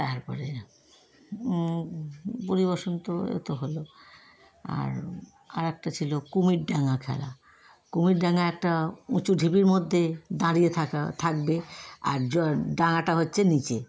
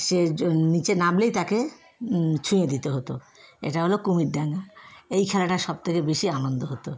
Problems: constant background noise